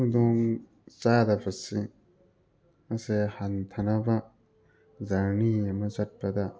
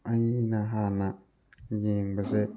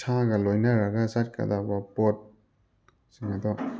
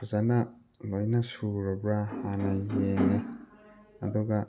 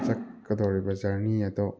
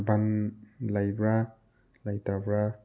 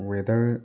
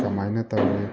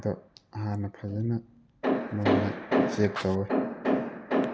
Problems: background sounds at intervals, background conversations at intervals